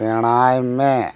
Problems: constant background noise